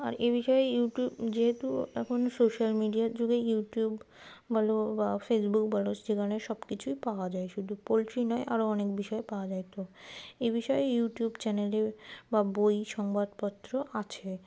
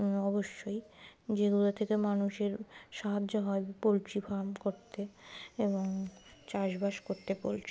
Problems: background sounds at intervals